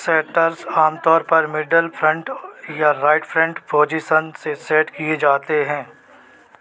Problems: none marked